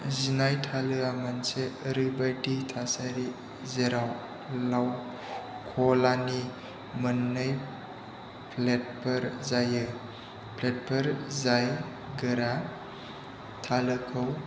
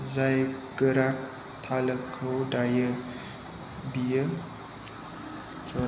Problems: low volume